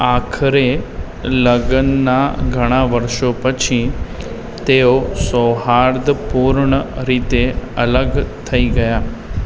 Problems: constant background noise